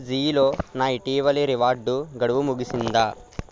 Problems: none marked